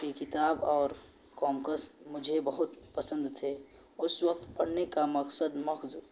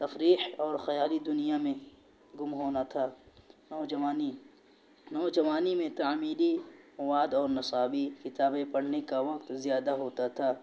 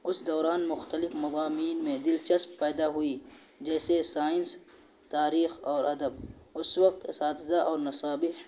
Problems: constant background noise